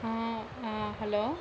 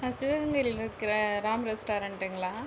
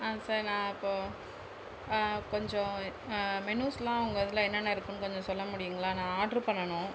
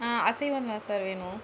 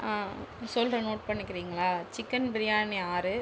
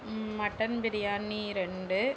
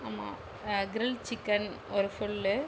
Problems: constant background noise